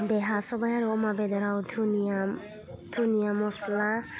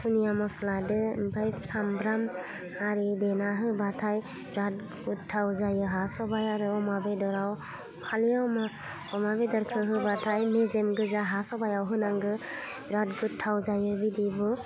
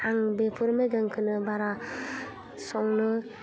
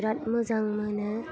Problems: constant background noise